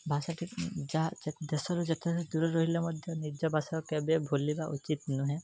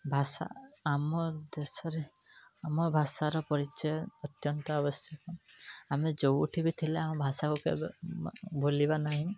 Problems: background sounds at intervals